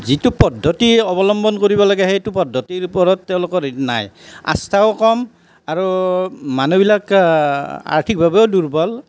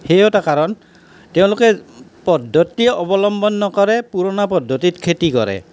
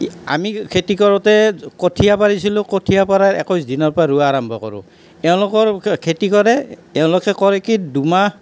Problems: none marked